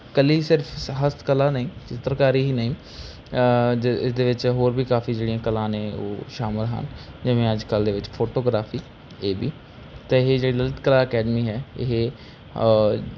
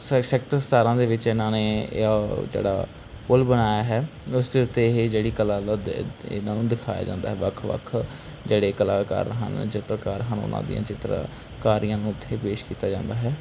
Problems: background sounds at intervals